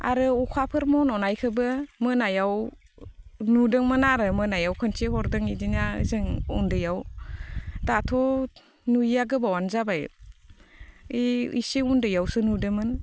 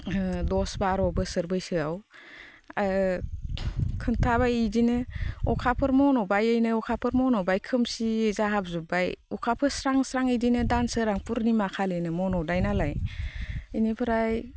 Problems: constant background noise